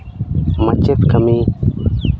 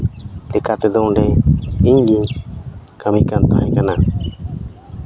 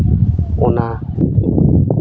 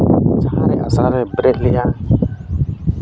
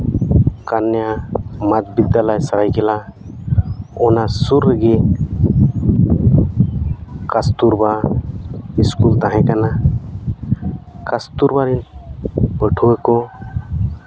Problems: constant background noise